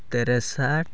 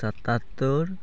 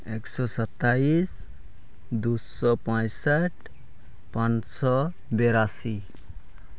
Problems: none marked